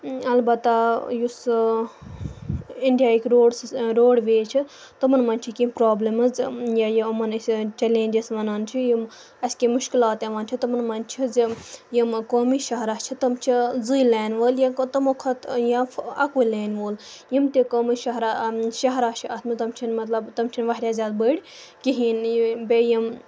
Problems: background sounds at intervals